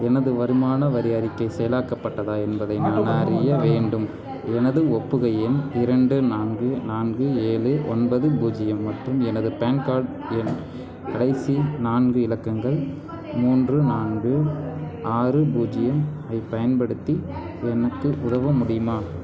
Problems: constant background noise, continuous background conversations, low volume